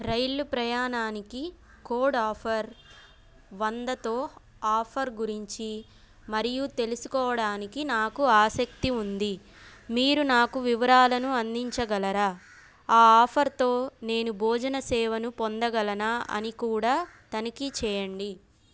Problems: background sounds at intervals